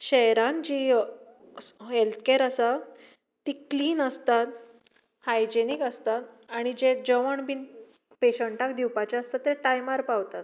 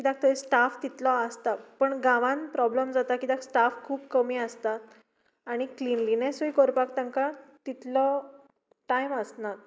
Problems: background sounds at intervals